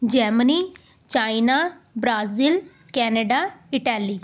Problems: background conversations at intervals